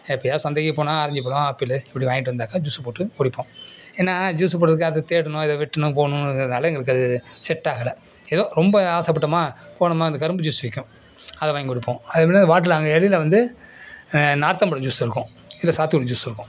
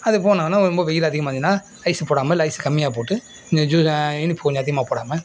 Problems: background sounds at intervals